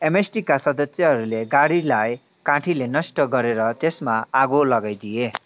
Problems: continuous background conversations